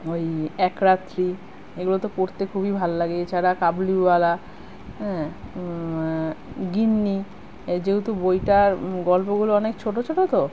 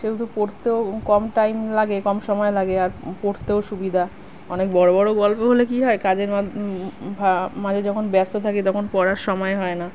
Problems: none marked